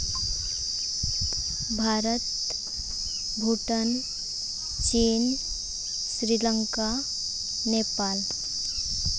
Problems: constant background noise